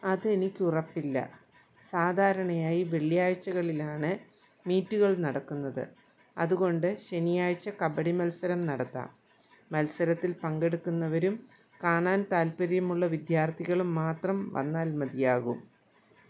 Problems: none marked